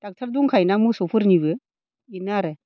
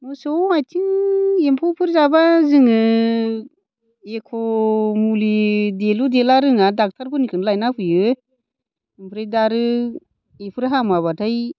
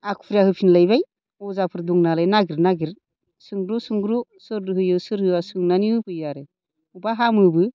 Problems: none marked